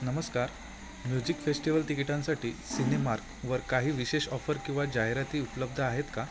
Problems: constant background noise